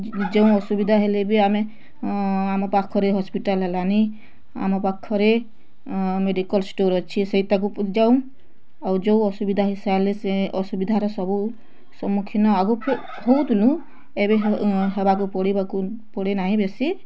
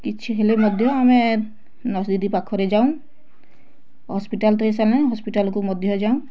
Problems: constant background noise, continuous background conversations